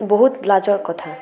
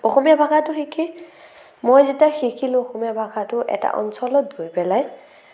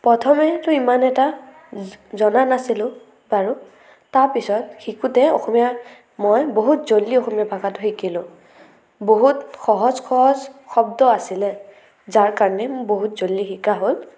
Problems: none marked